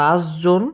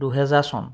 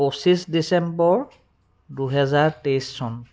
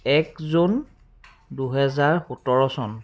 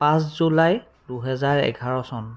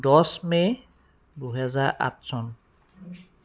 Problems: background sounds at intervals